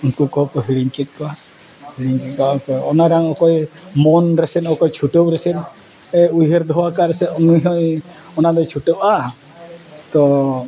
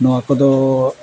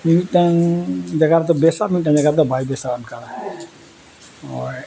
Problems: none marked